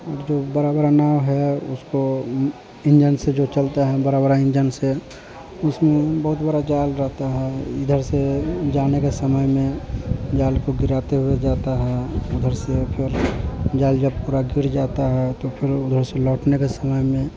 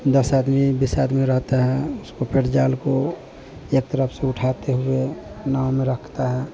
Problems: constant background noise